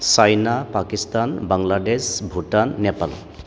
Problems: constant background noise